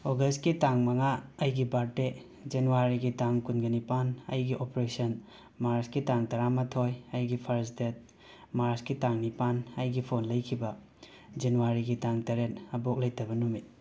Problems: none marked